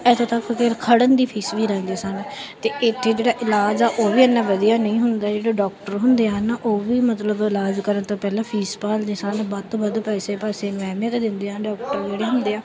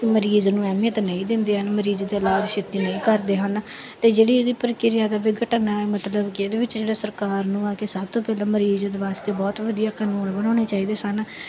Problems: background sounds at intervals